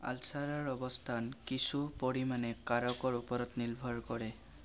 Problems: constant background noise